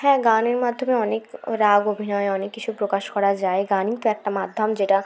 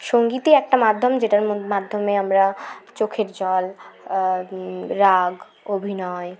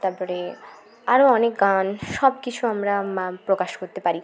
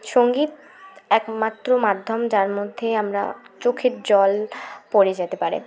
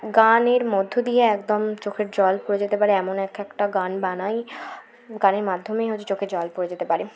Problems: continuous background conversations